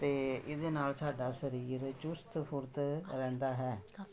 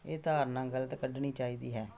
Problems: none marked